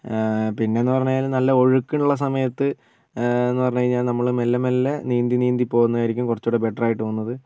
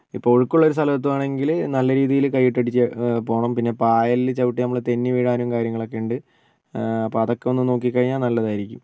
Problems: none marked